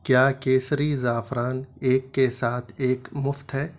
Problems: none marked